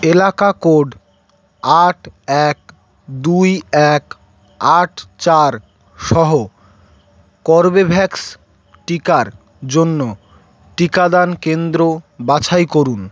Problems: constant background noise